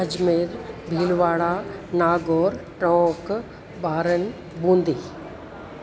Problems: constant background noise, echo